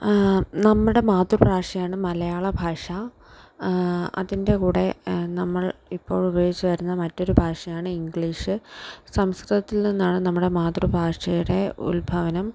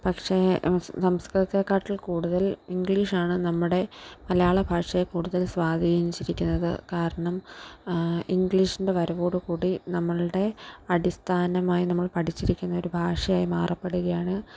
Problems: background sounds at intervals